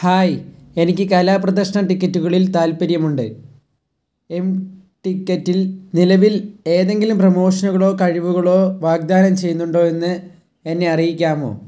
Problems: low volume